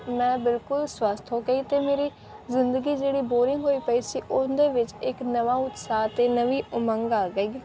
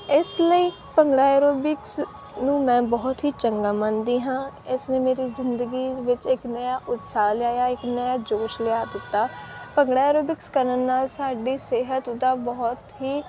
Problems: background sounds at intervals